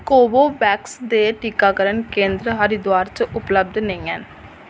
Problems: echo